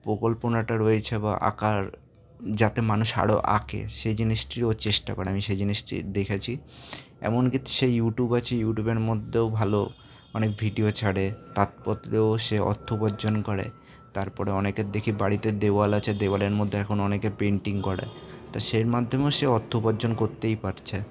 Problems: constant background noise, background conversations at intervals